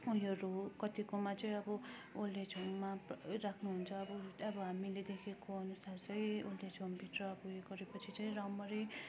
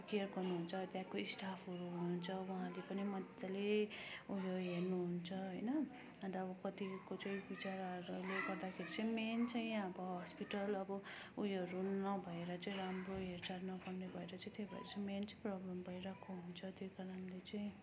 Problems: constant background noise